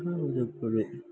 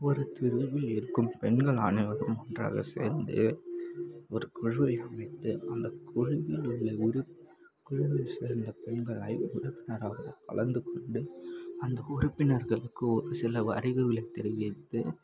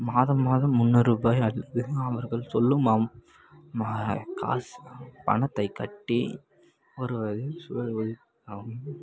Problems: constant background noise